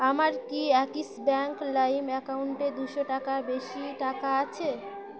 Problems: none marked